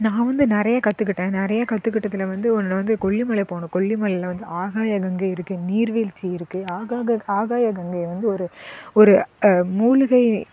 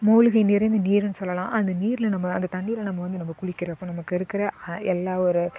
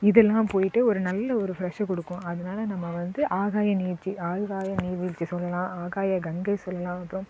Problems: background sounds at intervals